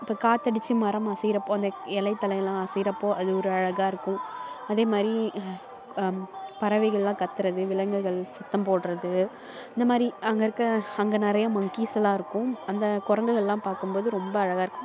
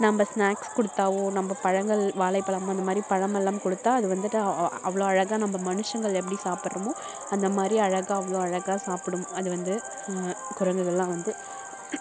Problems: constant background noise